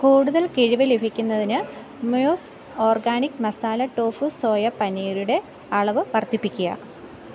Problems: background sounds at intervals